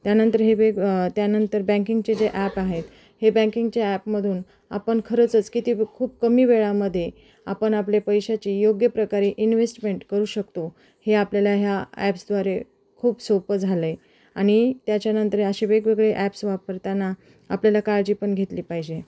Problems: background sounds at intervals, background conversations at intervals